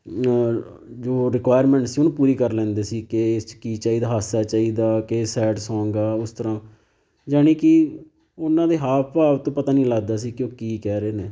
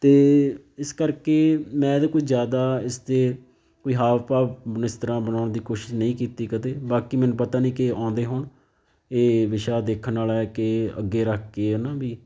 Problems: none marked